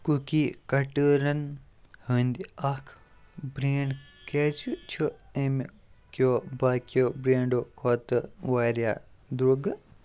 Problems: background sounds at intervals